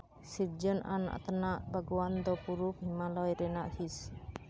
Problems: constant background noise